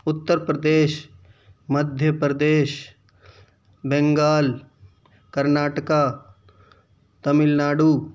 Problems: none marked